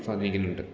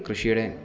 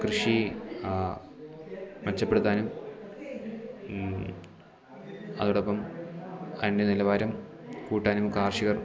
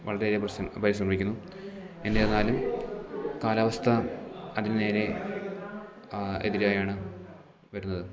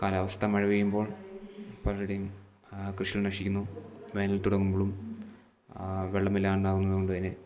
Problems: none marked